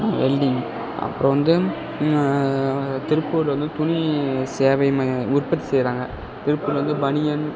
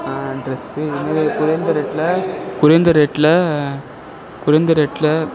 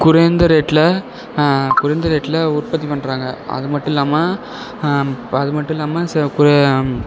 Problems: constant background noise